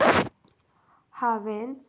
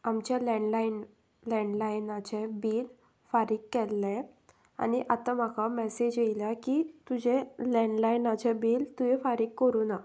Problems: background sounds at intervals